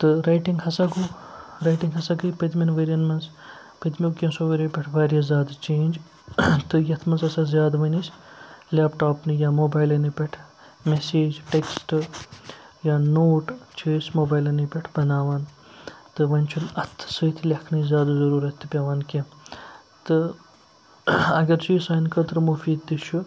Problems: none marked